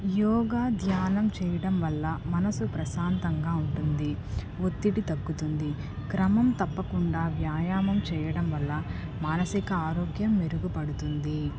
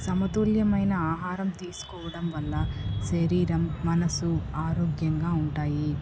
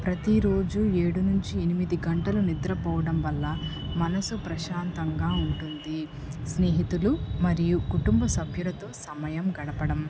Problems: constant background noise